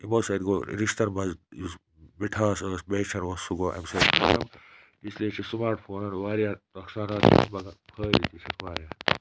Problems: background sounds at intervals